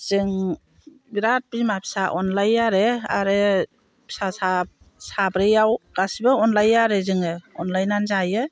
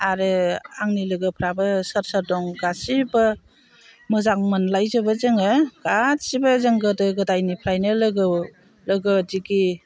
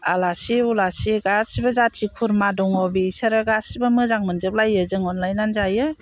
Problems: constant background noise